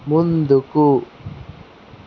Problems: constant background noise